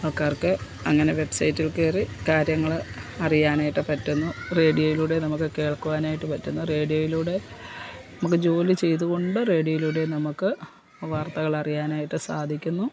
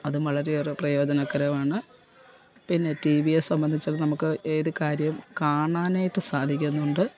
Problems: constant background noise